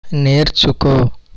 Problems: constant background noise